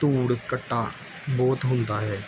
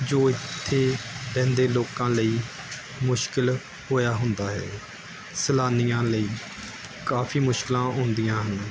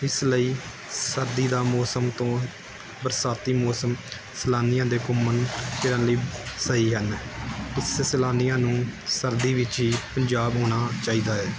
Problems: background sounds at intervals